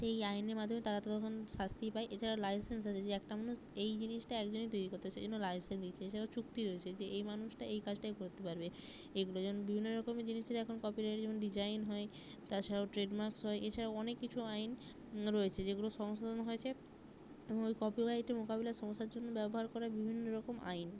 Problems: low volume